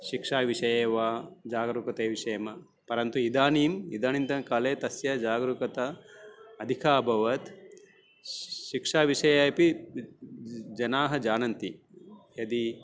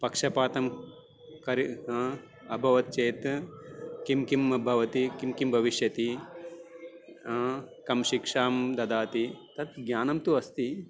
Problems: none marked